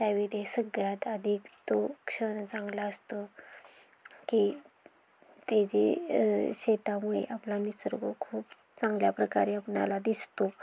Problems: constant background noise